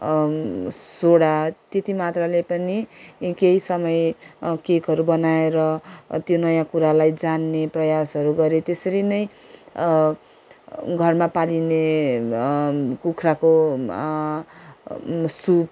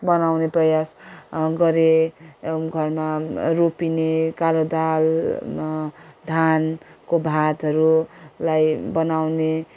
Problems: background sounds at intervals